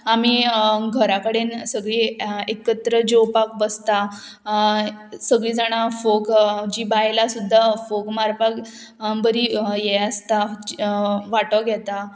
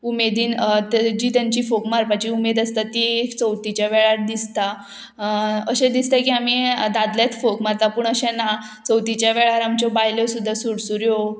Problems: none marked